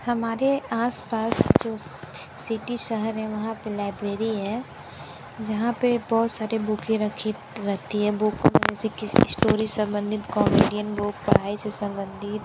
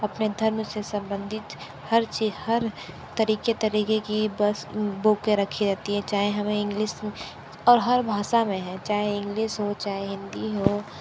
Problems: constant background noise